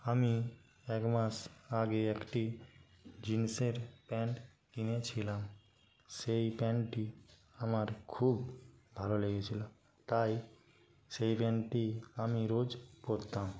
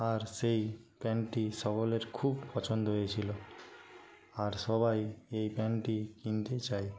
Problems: background sounds at intervals, low volume